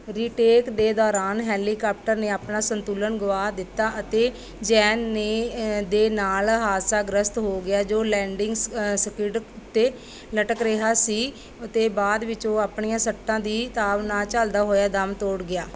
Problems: background sounds at intervals